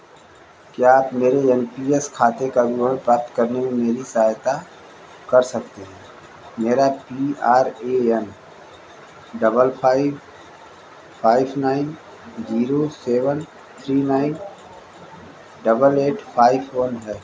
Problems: constant background noise, echo